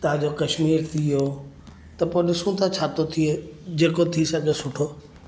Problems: none marked